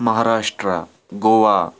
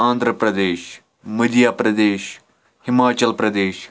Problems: background sounds at intervals